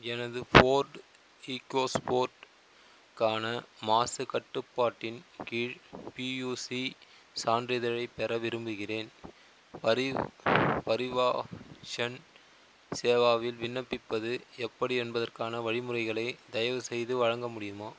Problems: constant background noise